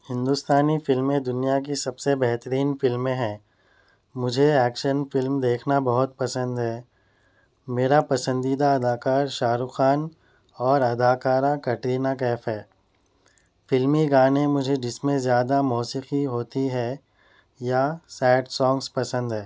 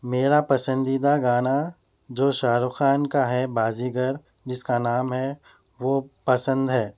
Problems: none marked